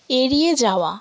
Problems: background sounds at intervals